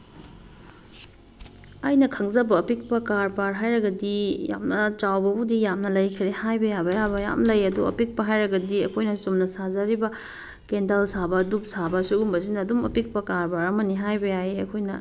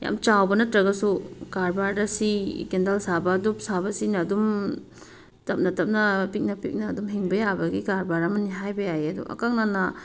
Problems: background sounds at intervals